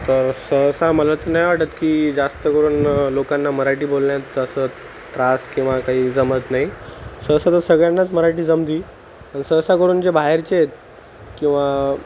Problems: constant background noise